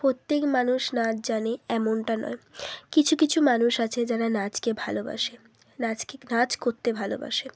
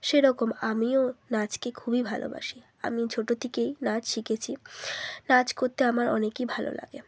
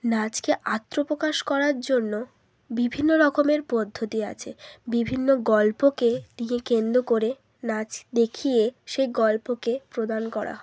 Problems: none marked